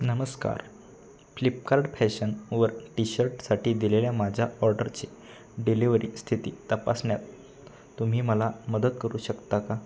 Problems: none marked